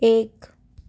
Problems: none marked